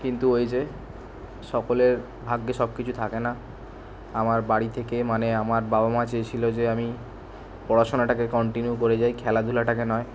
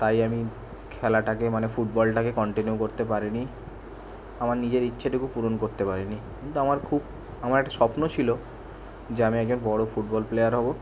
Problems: none marked